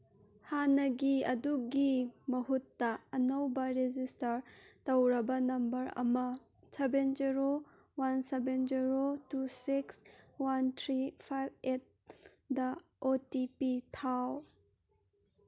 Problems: none marked